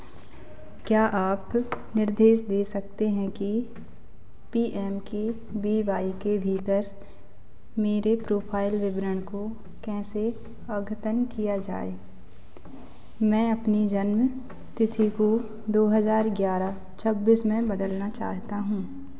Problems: none marked